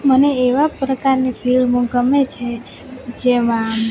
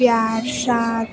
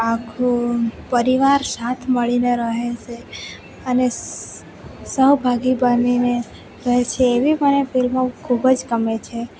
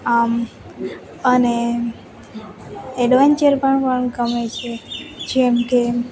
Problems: none marked